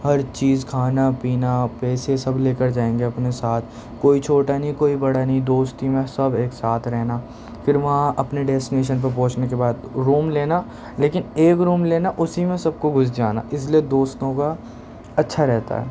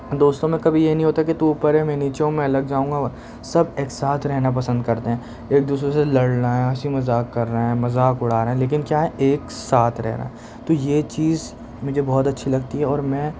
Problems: constant background noise